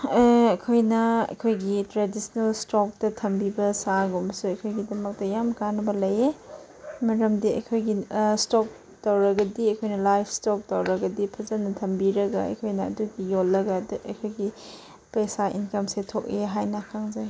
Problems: none marked